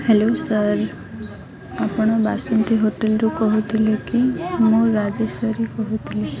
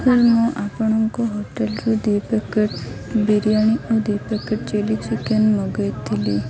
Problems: constant background noise